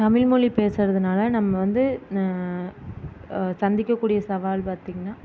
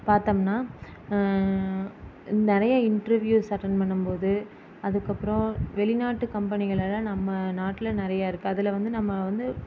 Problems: constant background noise